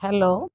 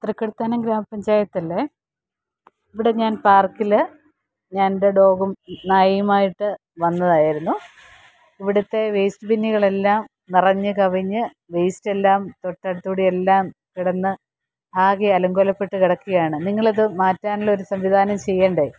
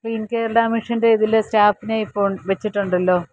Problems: background sounds at intervals